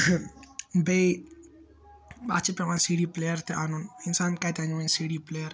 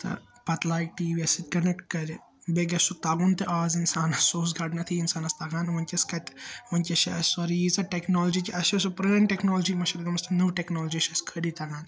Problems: constant background noise